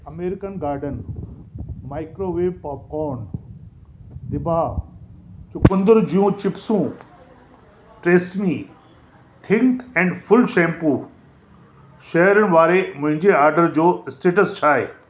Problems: constant background noise